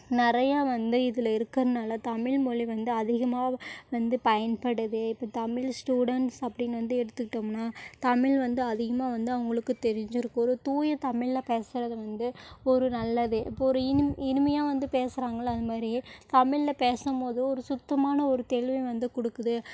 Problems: none marked